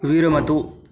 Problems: none marked